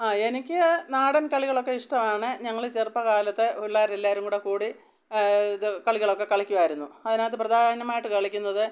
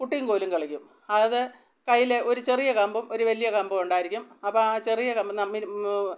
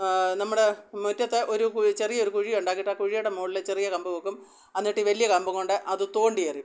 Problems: none marked